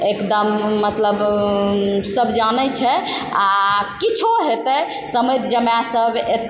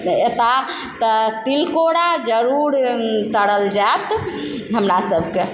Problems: constant background noise